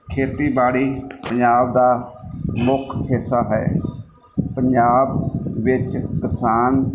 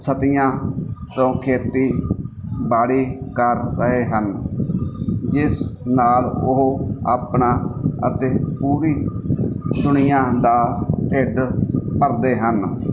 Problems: background sounds at intervals